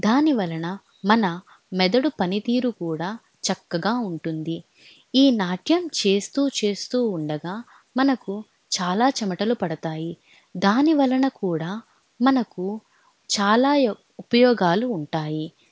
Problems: none marked